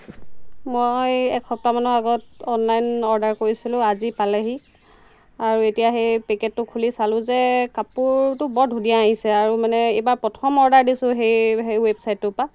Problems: constant background noise